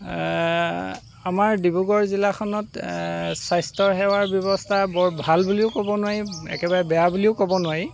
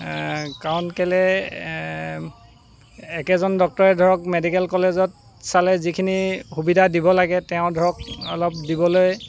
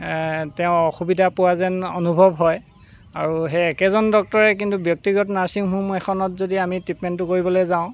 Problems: constant background noise